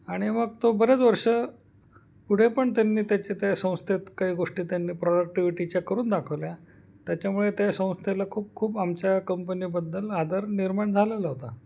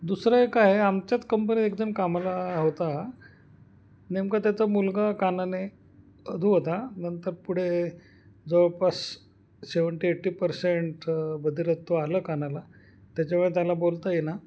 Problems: none marked